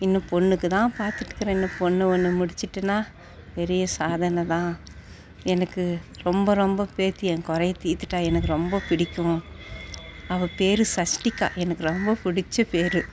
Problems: none marked